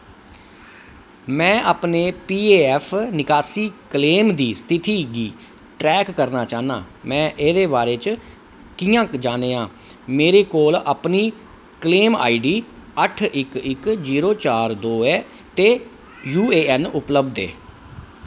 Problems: none marked